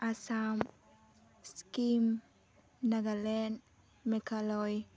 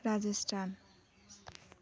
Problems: none marked